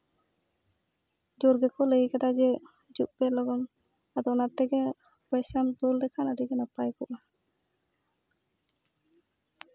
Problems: background sounds at intervals